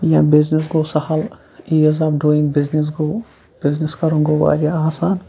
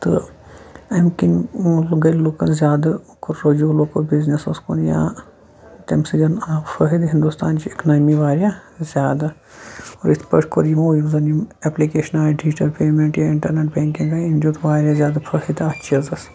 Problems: constant background noise